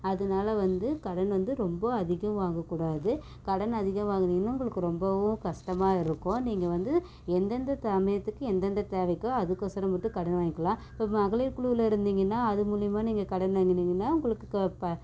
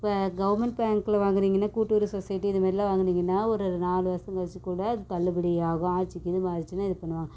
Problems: none marked